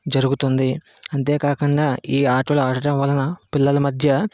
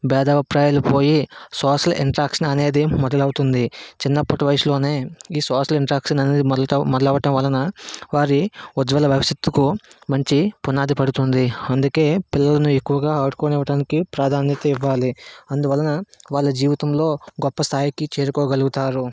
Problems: none marked